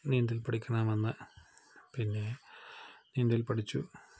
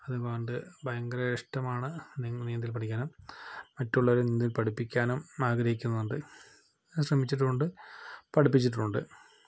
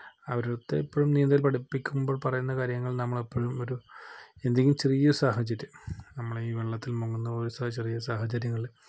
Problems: low volume